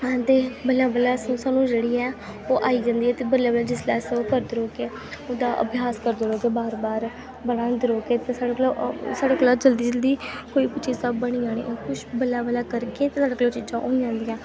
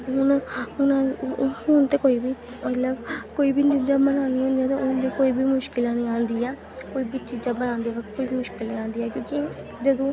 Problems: constant background noise, background conversations at intervals